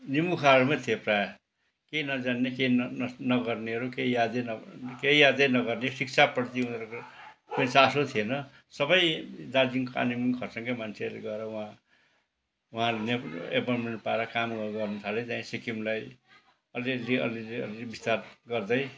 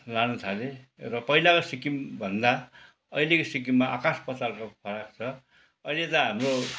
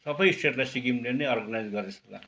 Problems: background sounds at intervals, background conversations at intervals